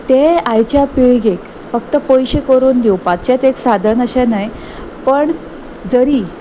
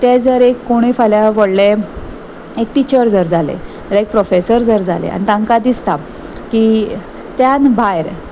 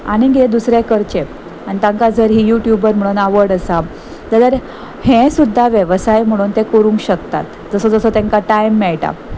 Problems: none marked